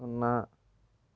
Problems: low volume